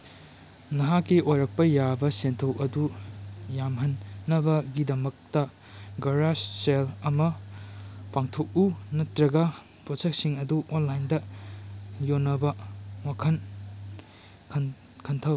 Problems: background sounds at intervals